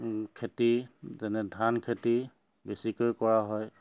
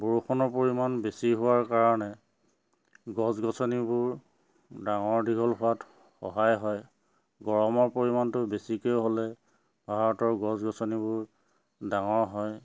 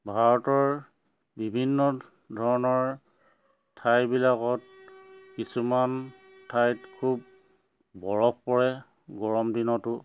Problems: none marked